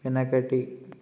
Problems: constant background noise